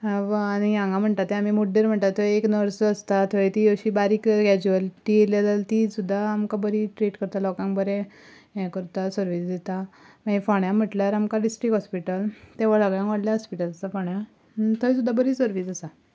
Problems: none marked